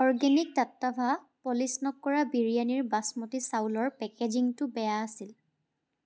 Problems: background sounds at intervals